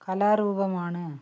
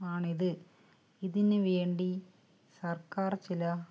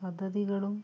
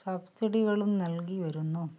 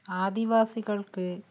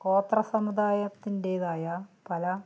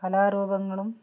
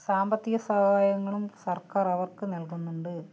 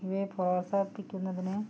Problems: low volume